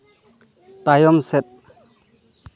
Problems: continuous background conversations